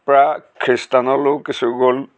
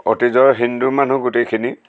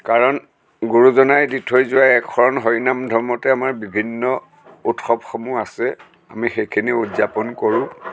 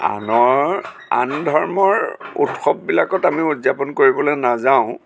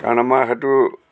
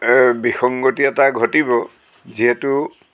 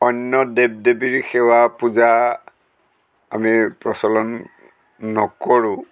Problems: constant background noise